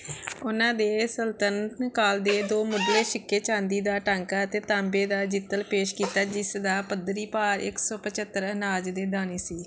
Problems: background sounds at intervals